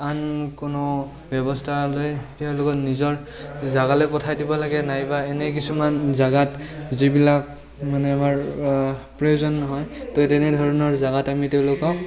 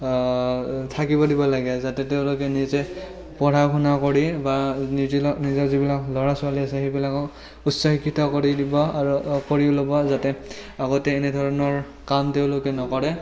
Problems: constant background noise, continuous background conversations